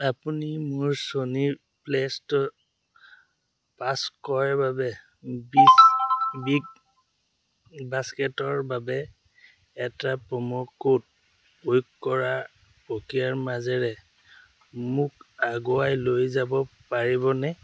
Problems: none marked